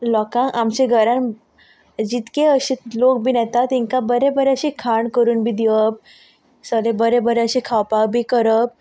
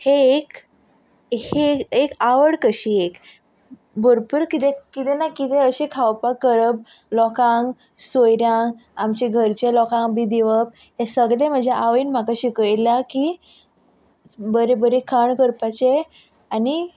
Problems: background sounds at intervals